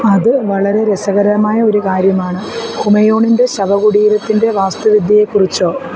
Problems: constant background noise